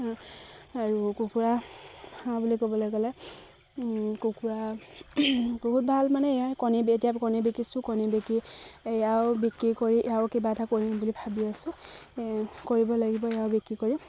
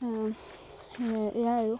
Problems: constant background noise, background conversations at intervals